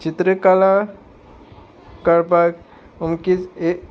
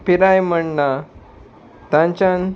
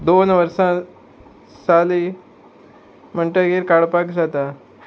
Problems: constant background noise